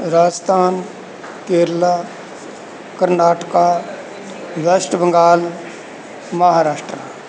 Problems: background sounds at intervals